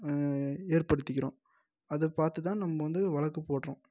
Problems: low volume